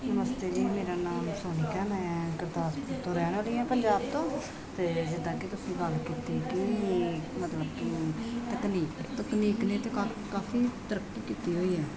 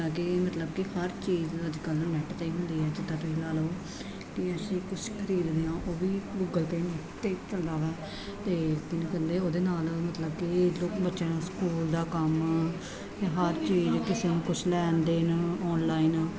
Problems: constant background noise